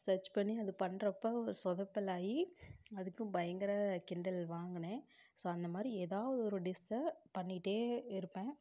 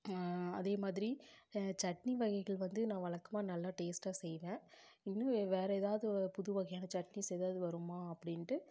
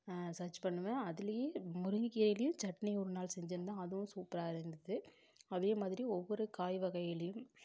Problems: low volume